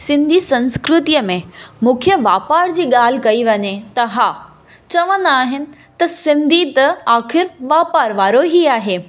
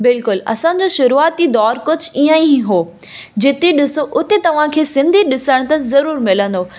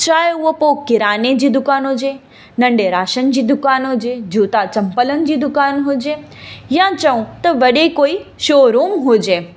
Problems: constant background noise, echo